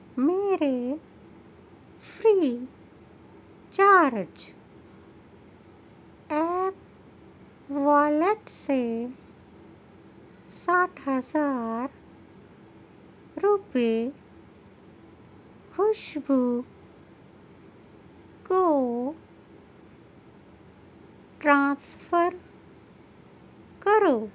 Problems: low volume